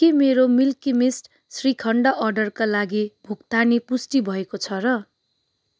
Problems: none marked